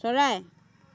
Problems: background conversations at intervals